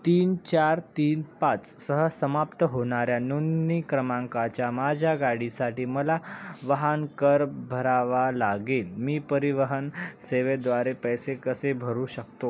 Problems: none marked